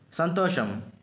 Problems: background sounds at intervals